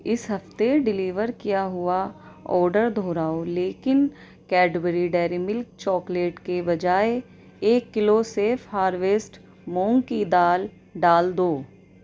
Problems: none marked